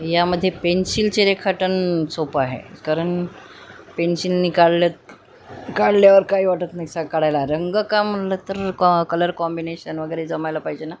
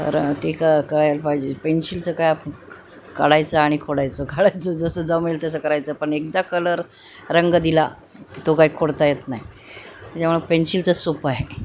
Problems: constant background noise